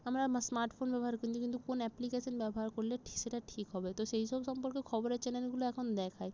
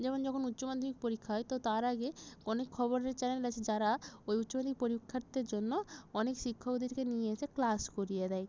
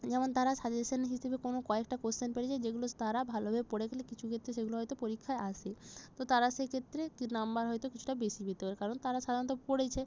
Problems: none marked